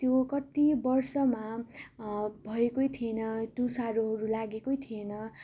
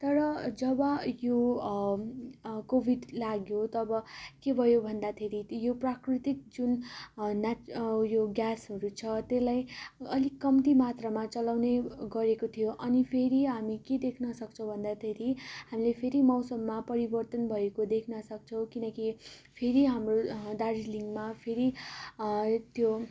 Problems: constant background noise